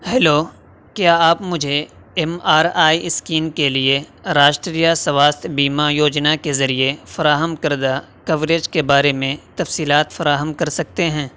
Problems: constant background noise